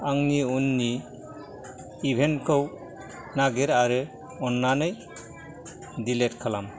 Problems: background conversations at intervals